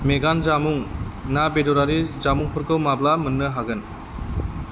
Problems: constant background noise